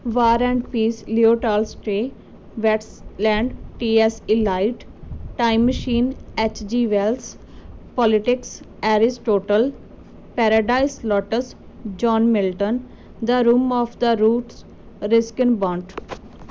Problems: none marked